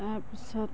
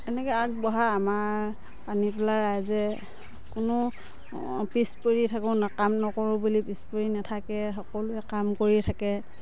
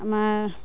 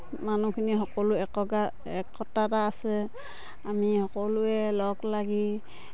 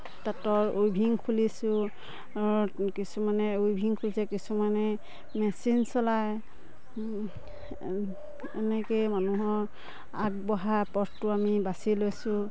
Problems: background sounds at intervals